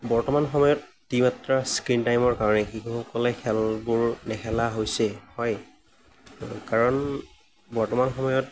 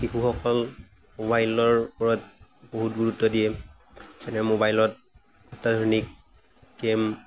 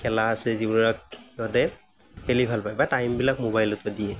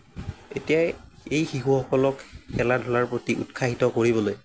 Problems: none marked